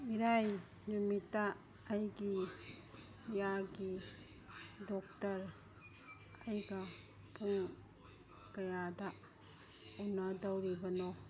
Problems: background conversations at intervals